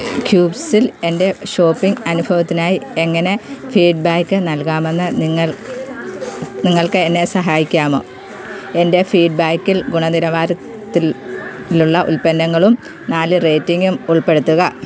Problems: constant background noise